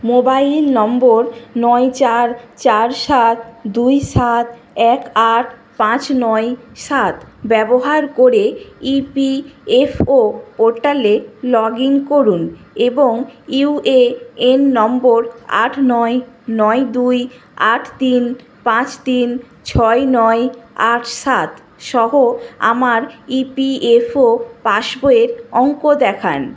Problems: none marked